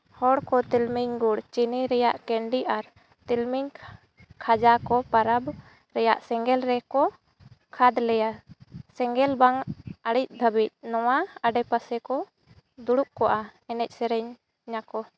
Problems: none marked